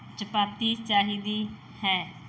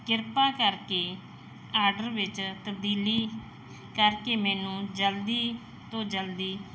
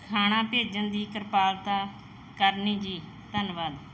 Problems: background sounds at intervals